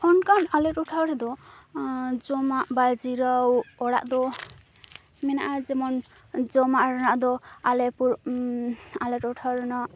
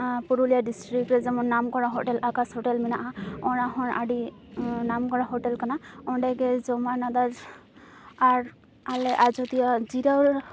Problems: constant background noise